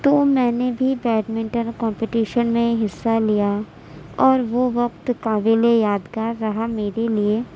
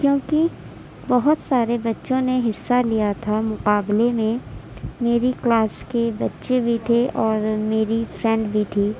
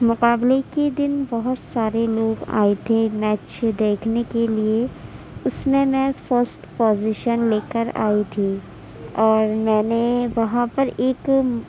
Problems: none marked